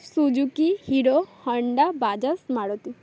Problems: none marked